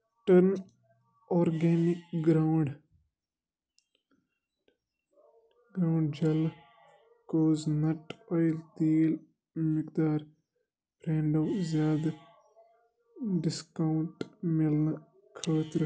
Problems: background sounds at intervals